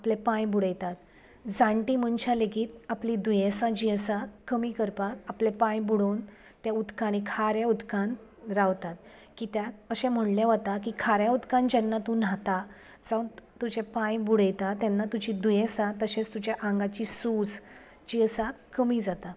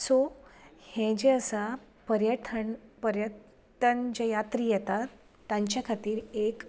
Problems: none marked